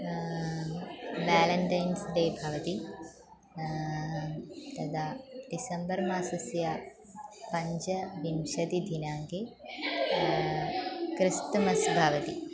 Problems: constant background noise